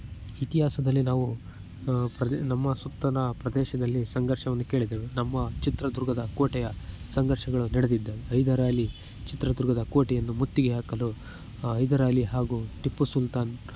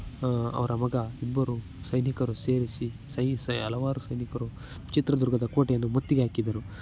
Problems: constant background noise, low volume